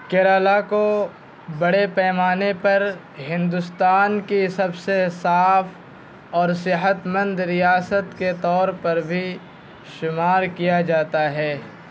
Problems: constant background noise